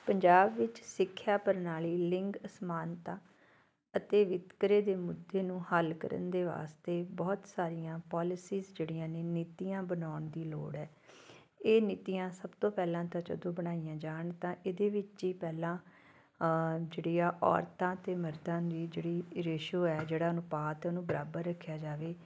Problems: background sounds at intervals